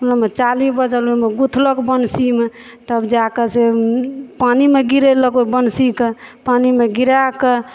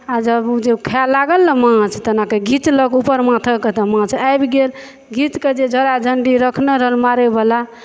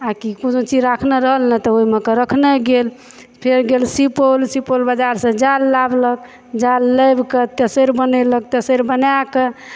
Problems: none marked